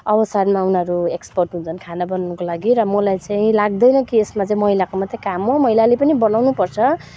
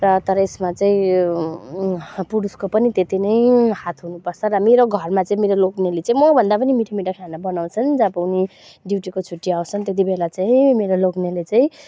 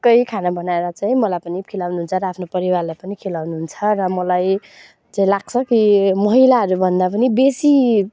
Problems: none marked